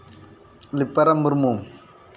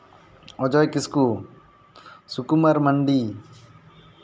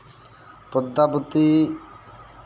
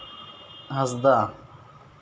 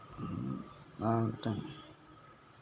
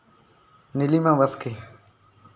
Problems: background sounds at intervals